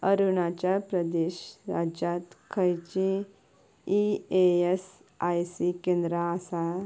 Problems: none marked